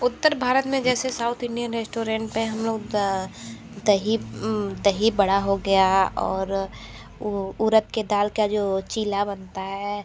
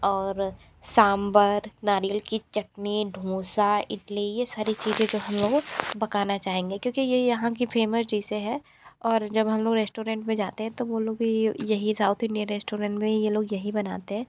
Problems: none marked